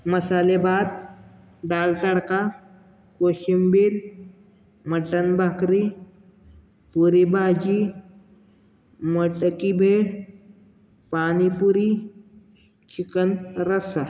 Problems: none marked